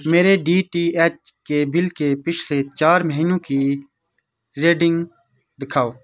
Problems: background sounds at intervals